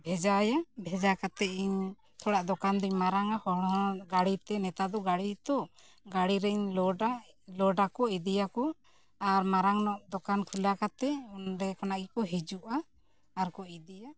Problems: background conversations at intervals